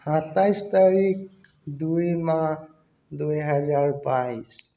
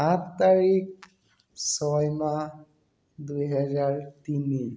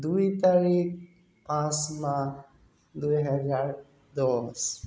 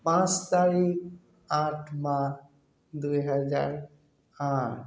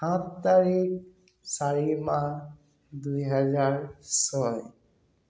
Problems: constant background noise